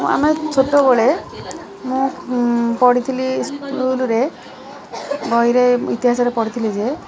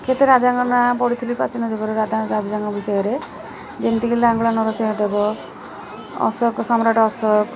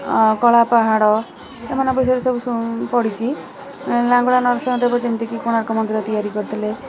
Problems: constant background noise, continuous background conversations